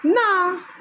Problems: none marked